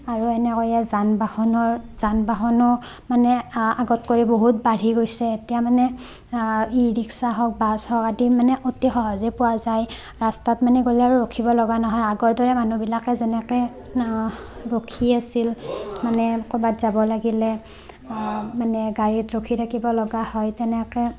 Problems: constant background noise